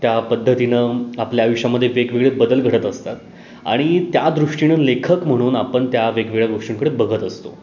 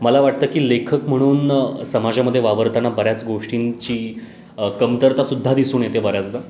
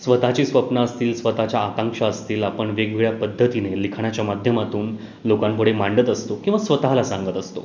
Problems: none marked